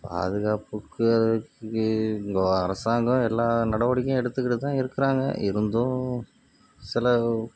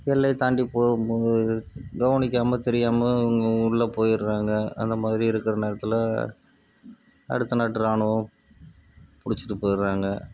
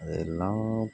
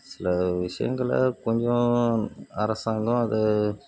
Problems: background sounds at intervals